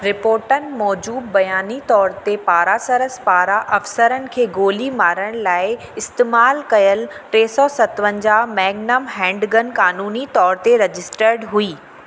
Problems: constant background noise, echo